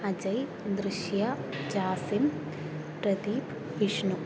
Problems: low volume